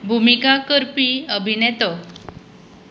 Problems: constant background noise